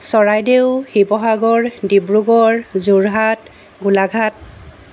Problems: constant background noise